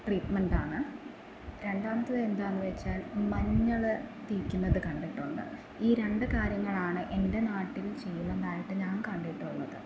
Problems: constant background noise